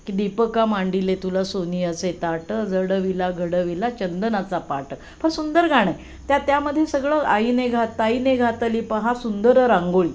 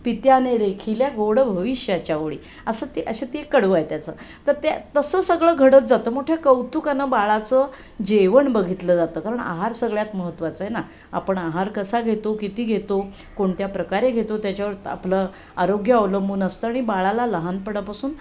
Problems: constant background noise, background conversations at intervals